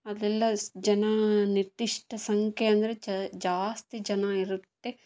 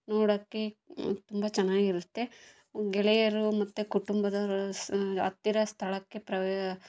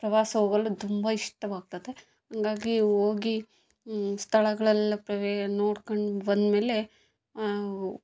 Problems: background sounds at intervals